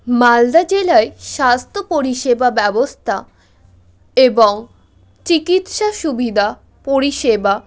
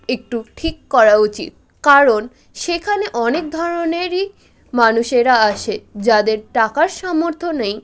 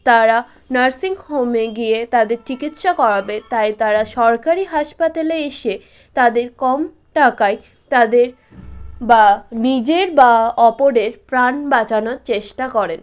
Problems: none marked